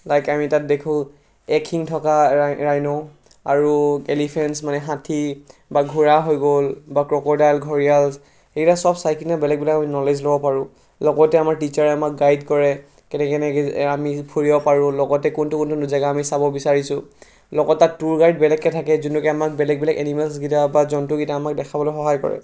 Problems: none marked